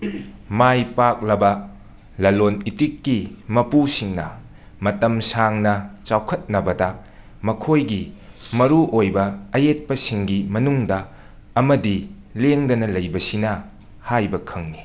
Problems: background sounds at intervals